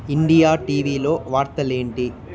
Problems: constant background noise, continuous background conversations